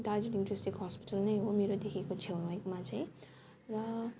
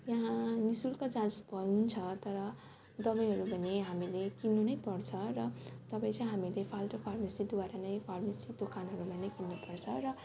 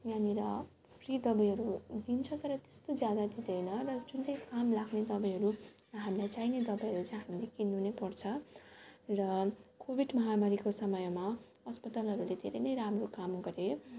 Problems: constant background noise, background conversations at intervals